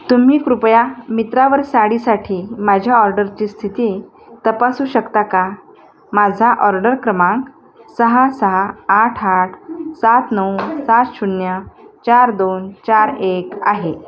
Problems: constant background noise, background conversations at intervals